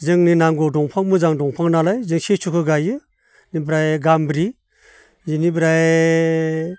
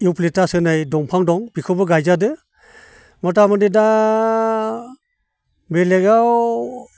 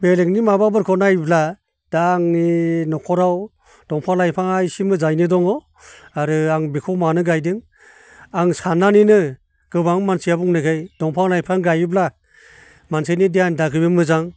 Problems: none marked